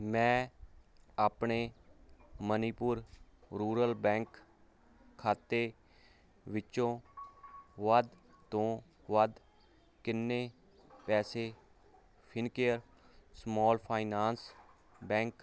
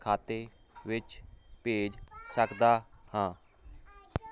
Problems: constant background noise